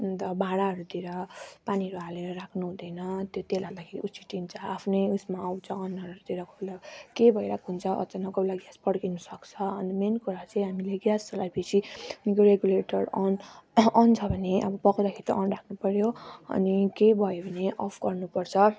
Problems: constant background noise